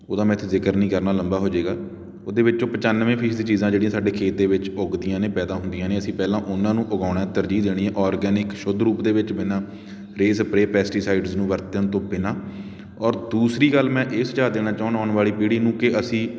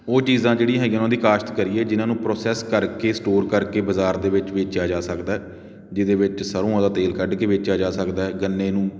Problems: none marked